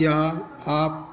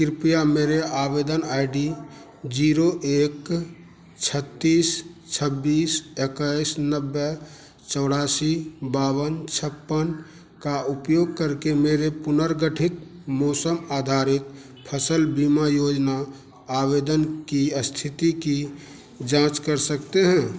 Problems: none marked